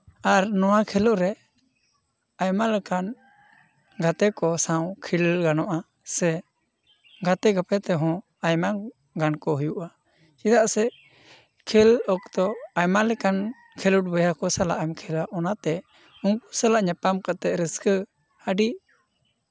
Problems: background conversations at intervals